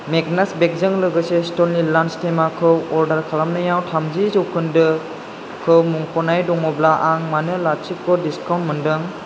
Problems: constant background noise